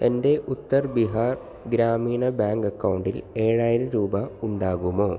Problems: none marked